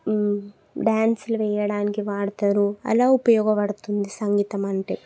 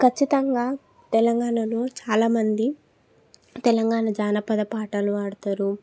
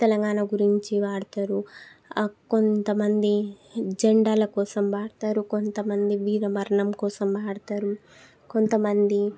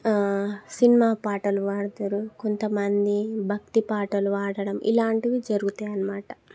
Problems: none marked